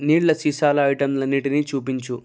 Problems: none marked